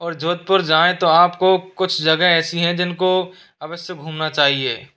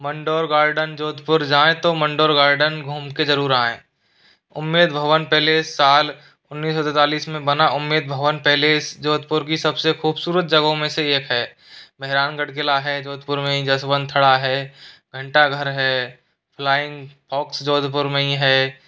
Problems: constant background noise